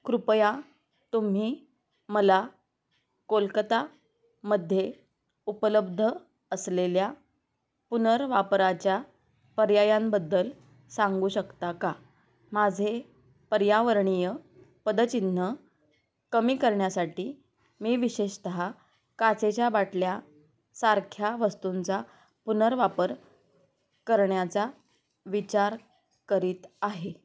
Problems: background sounds at intervals, background conversations at intervals